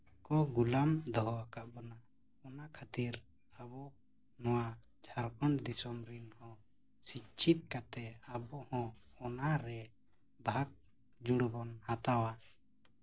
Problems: constant background noise, low volume